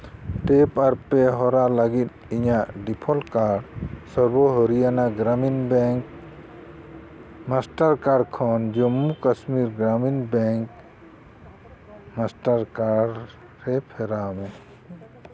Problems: constant background noise